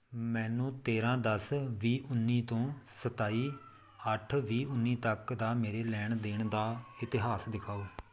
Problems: none marked